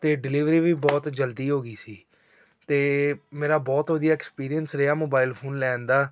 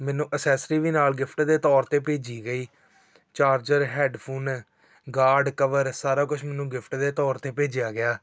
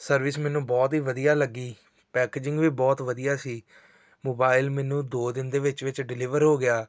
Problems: background sounds at intervals